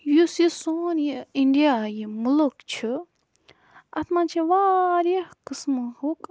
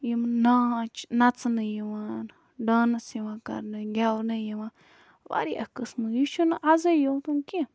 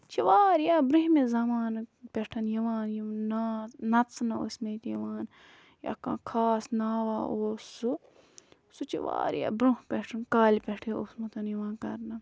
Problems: background sounds at intervals